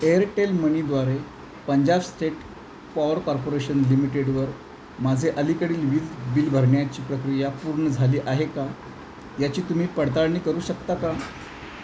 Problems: none marked